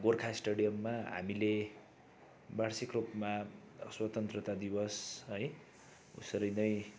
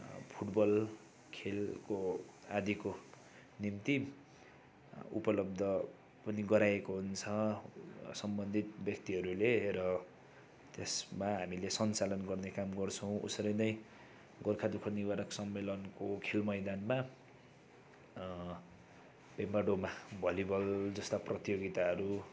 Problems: constant background noise